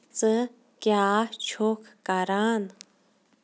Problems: none marked